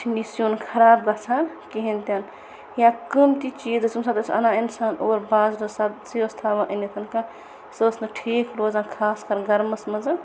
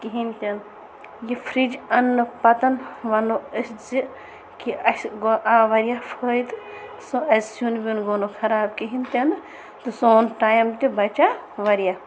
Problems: constant background noise